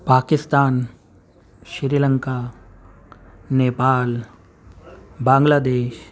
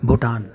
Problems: constant background noise, background conversations at intervals